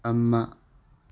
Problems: none marked